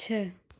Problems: none marked